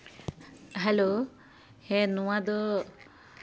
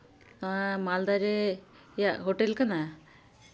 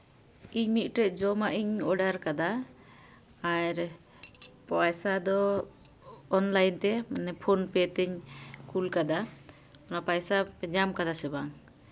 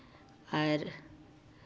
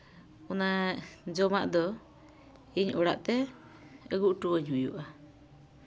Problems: none marked